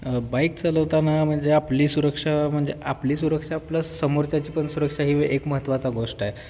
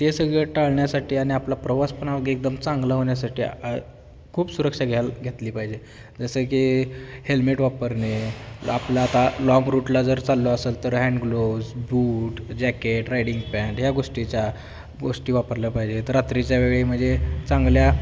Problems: none marked